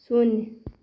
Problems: constant background noise